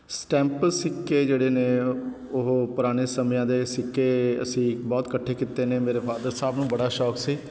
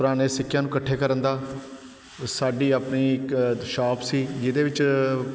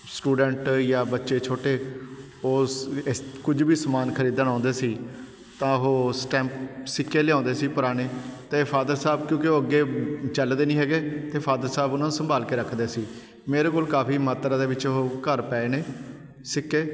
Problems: none marked